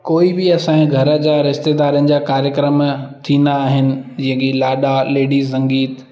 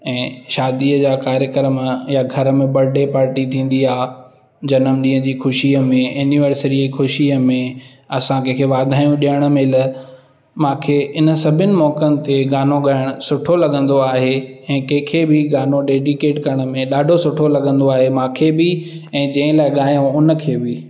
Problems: constant background noise, echo